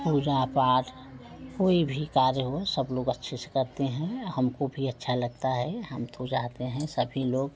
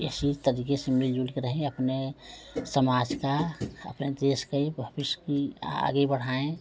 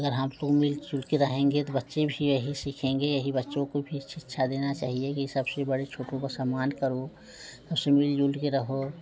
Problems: none marked